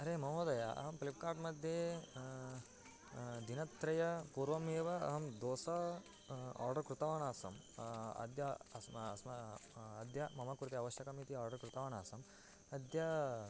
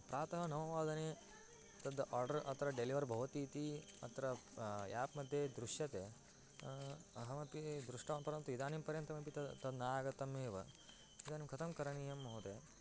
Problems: low volume